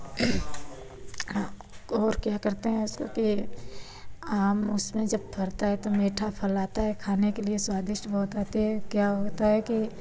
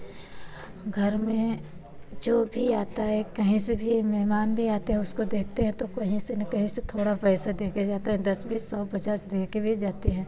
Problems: constant background noise